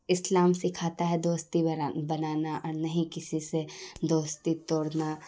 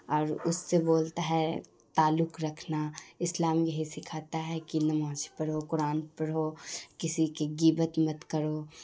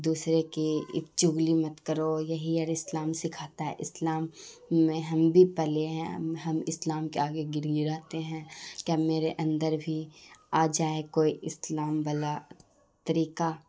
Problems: constant background noise